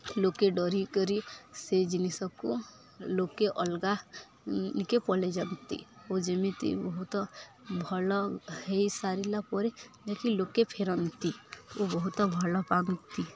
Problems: constant background noise, continuous background conversations